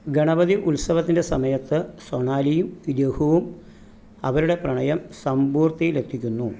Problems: none marked